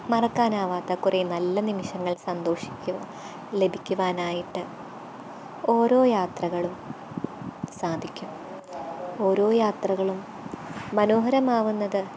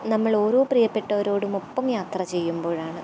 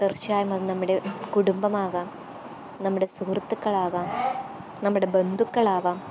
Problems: constant background noise, background conversations at intervals